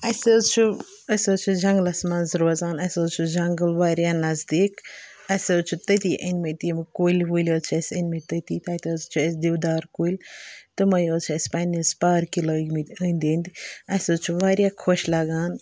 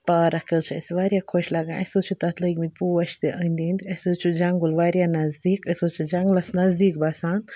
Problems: background sounds at intervals